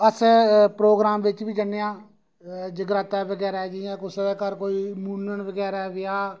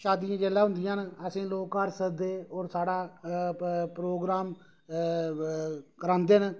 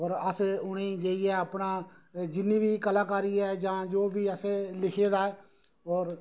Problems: none marked